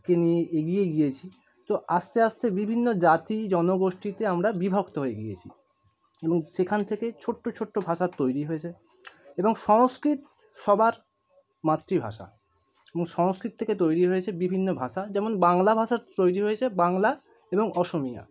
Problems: none marked